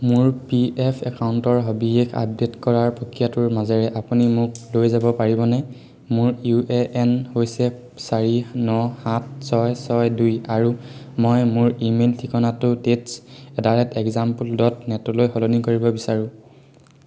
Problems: none marked